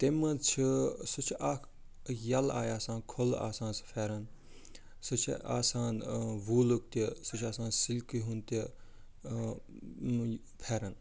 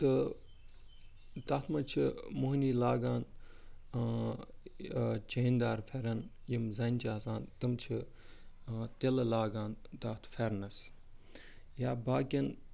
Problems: background sounds at intervals, low volume